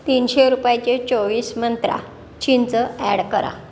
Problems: constant background noise